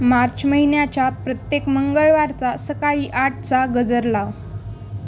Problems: background sounds at intervals